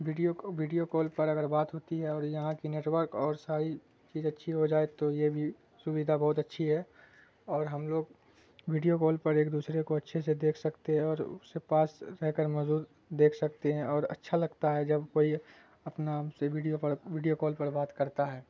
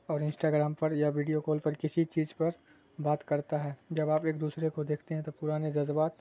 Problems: constant background noise